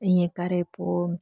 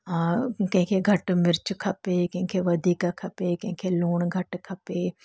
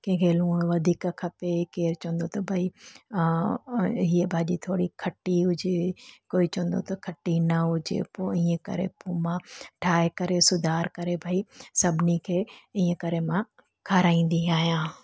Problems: background sounds at intervals